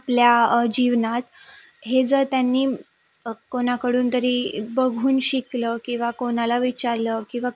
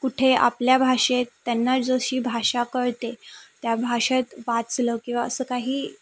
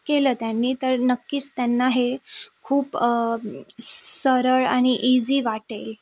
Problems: background sounds at intervals